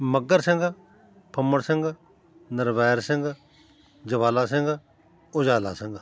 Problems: constant background noise